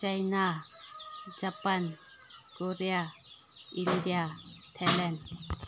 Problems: background sounds at intervals